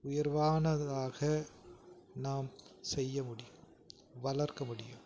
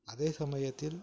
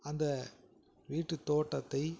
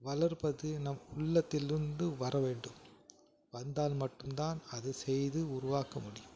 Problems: background conversations at intervals